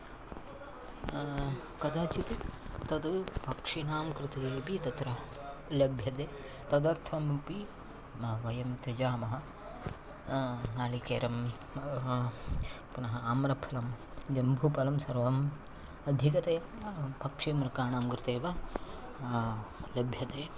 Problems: none marked